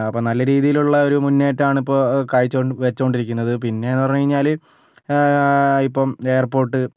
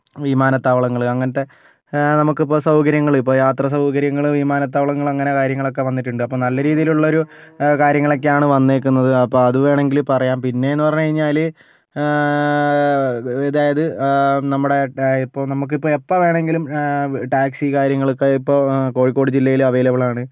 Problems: none marked